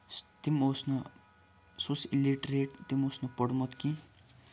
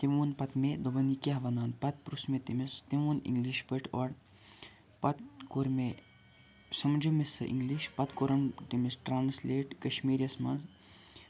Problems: none marked